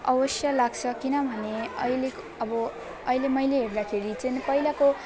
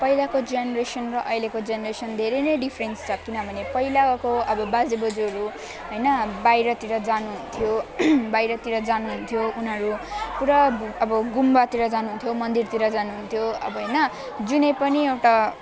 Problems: constant background noise, continuous background conversations